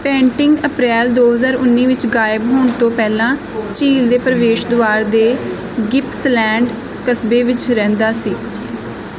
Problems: none marked